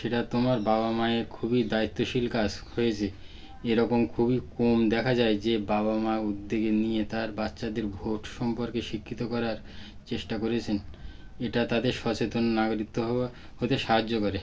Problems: background sounds at intervals